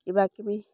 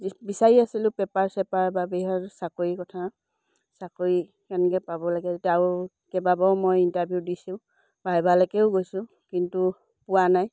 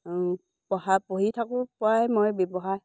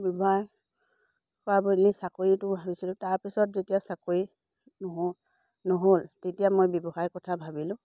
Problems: low volume